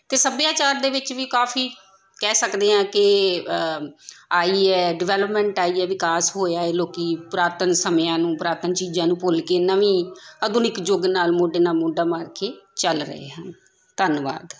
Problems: background conversations at intervals